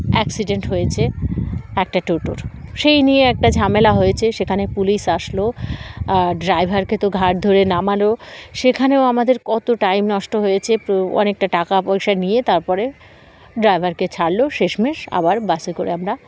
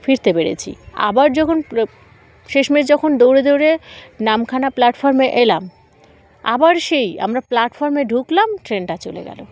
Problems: constant background noise, background conversations at intervals